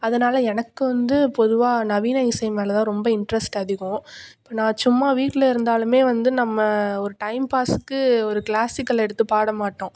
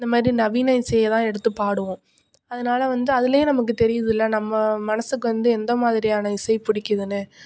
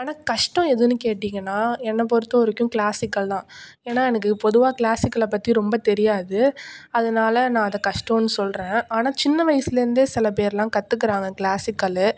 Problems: none marked